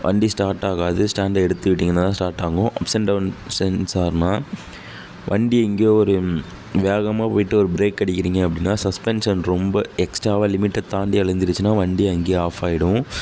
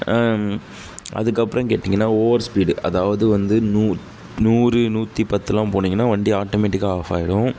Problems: background sounds at intervals